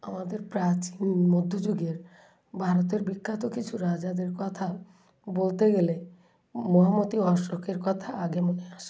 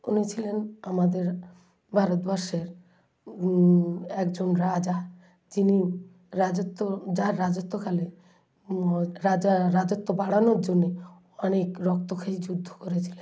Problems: background sounds at intervals, low volume